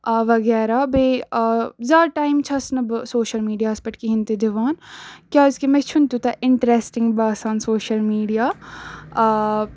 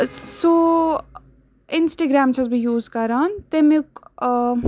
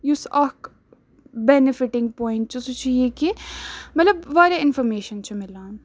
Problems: none marked